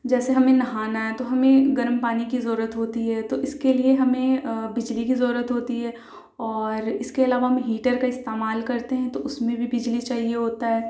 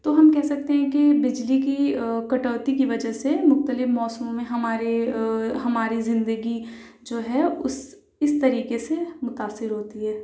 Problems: low volume